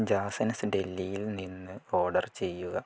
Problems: low volume